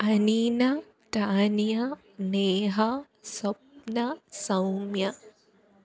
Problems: none marked